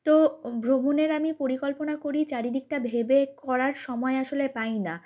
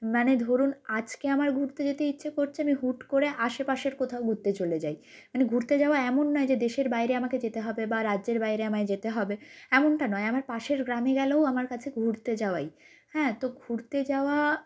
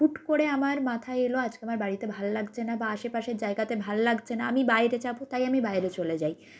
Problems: none marked